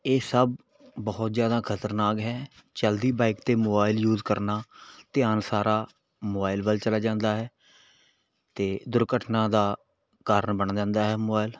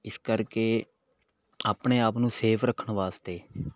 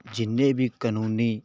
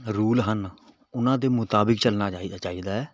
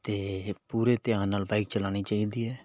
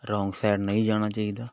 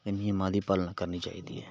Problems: background sounds at intervals